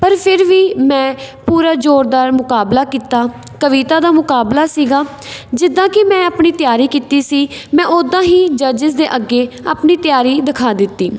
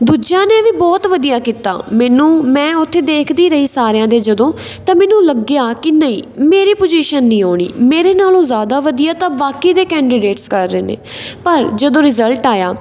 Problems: constant background noise